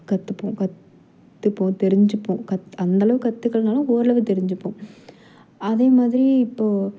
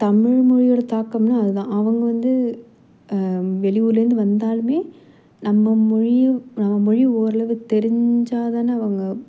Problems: none marked